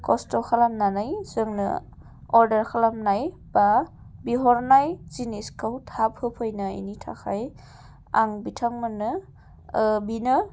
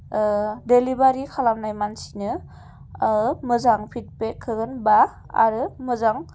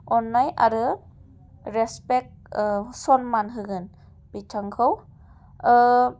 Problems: none marked